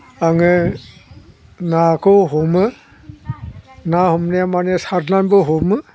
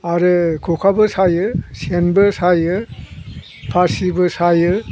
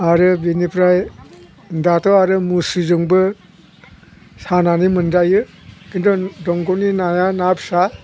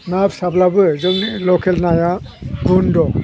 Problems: none marked